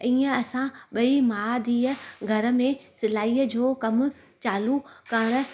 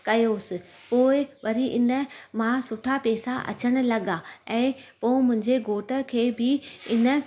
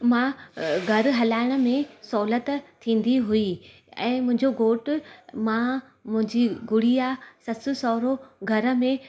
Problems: constant background noise